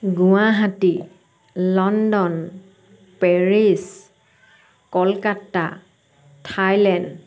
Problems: none marked